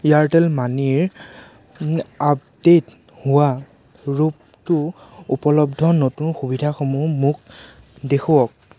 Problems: constant background noise